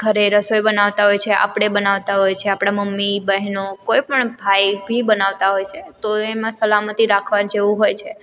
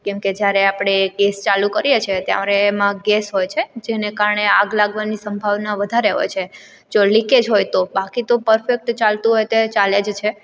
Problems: background sounds at intervals